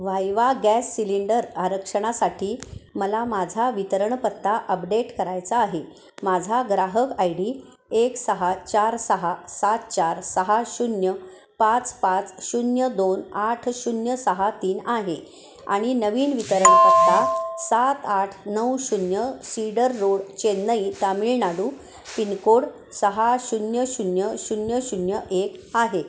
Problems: constant background noise, background conversations at intervals, echo